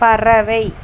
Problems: constant background noise